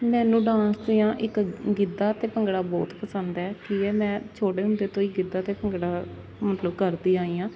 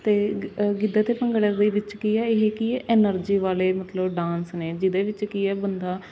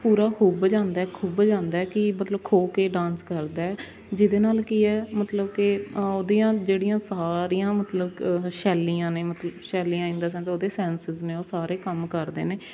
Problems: constant background noise, background conversations at intervals